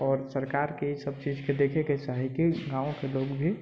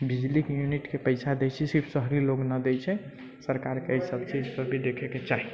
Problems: background sounds at intervals